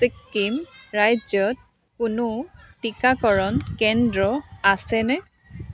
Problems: continuous background conversations